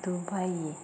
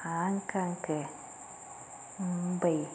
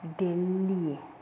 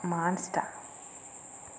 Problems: constant background noise, low volume